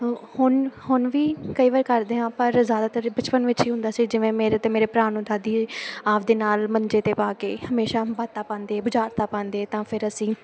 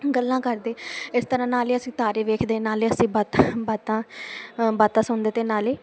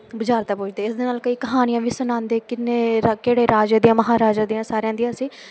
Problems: none marked